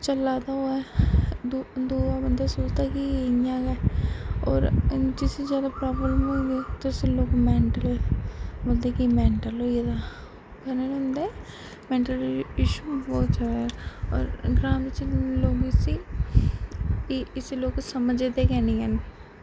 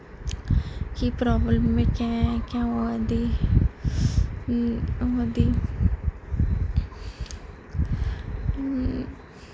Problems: constant background noise, low volume